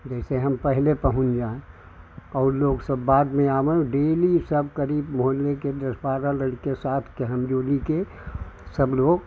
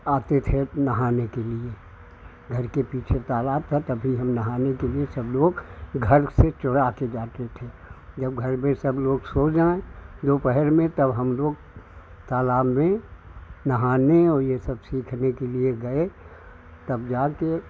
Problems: none marked